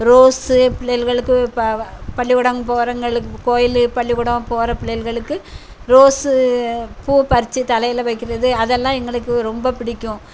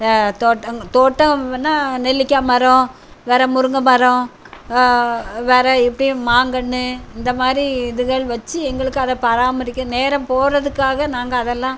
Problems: none marked